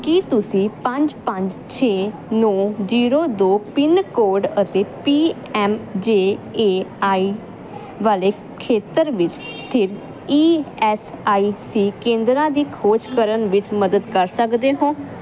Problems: none marked